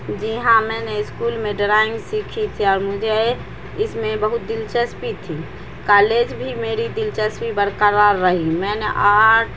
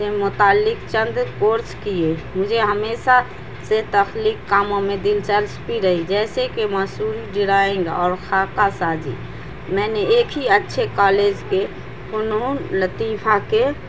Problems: constant background noise